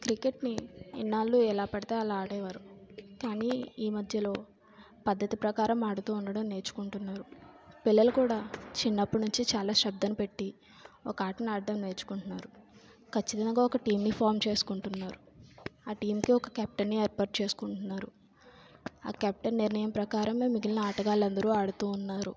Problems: low volume